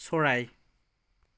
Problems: none marked